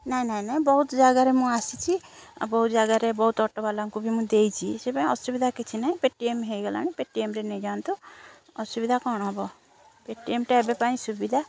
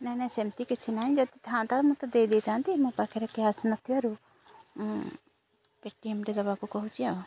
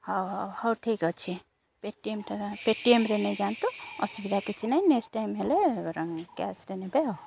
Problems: constant background noise